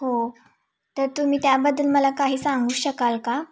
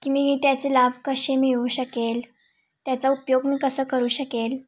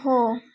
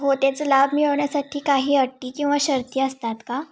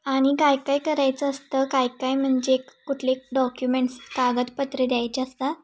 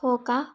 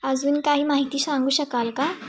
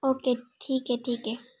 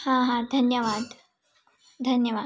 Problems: constant background noise